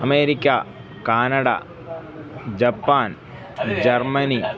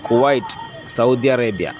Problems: background sounds at intervals